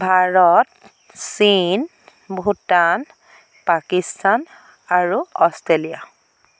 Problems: constant background noise